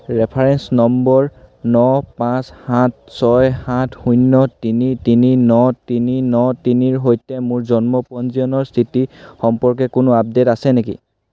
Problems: none marked